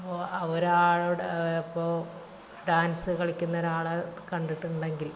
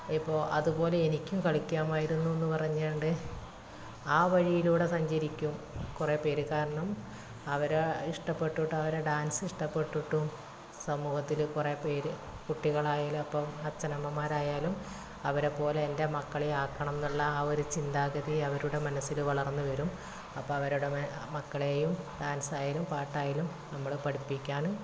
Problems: constant background noise, low volume